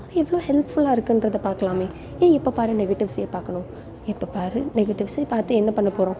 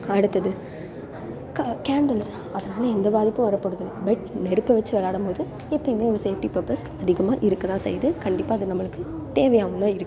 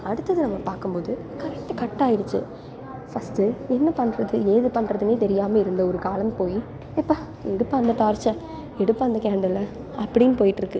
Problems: none marked